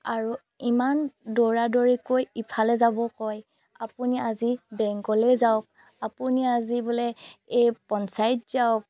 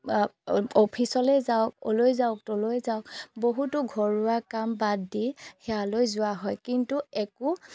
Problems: none marked